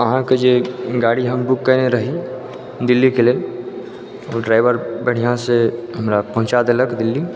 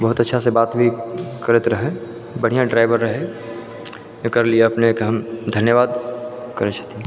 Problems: none marked